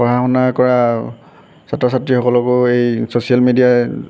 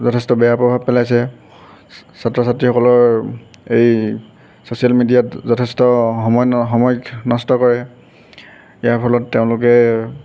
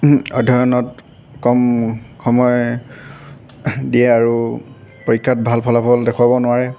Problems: constant background noise